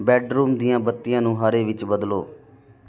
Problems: none marked